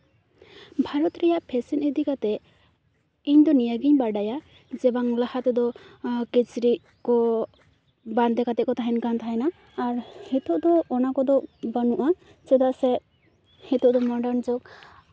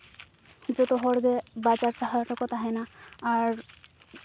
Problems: none marked